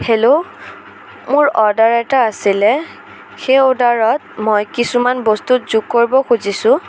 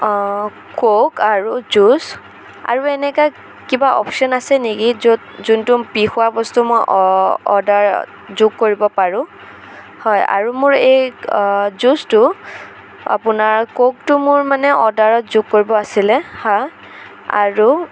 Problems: constant background noise, background conversations at intervals